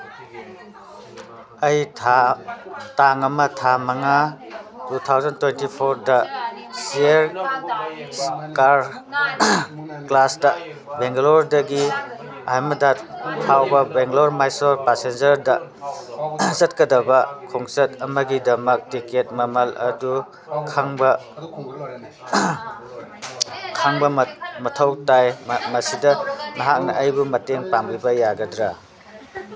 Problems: background conversations at intervals